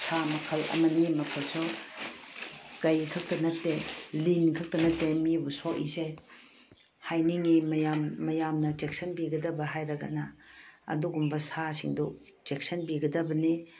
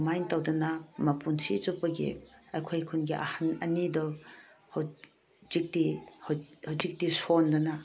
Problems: none marked